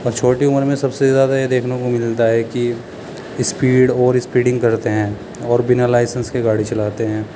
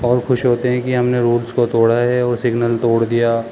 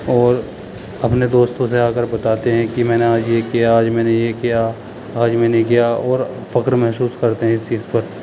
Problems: constant background noise, background conversations at intervals